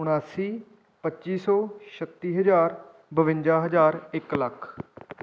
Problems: background sounds at intervals